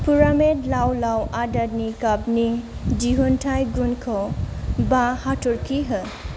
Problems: constant background noise